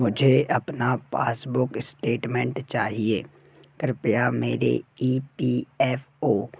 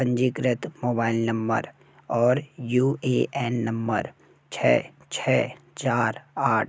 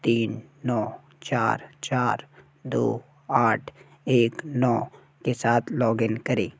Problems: constant background noise